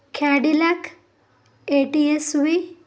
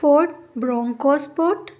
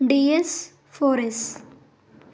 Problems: none marked